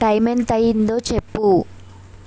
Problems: constant background noise